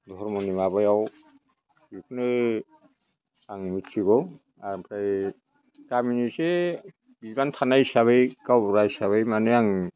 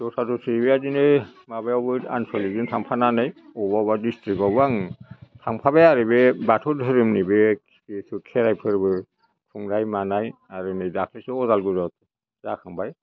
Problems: none marked